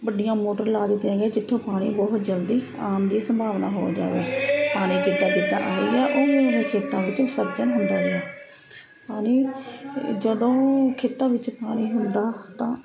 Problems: constant background noise